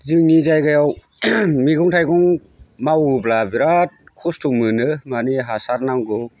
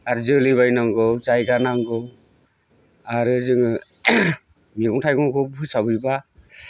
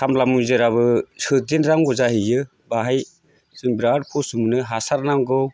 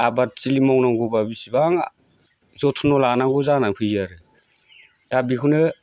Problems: constant background noise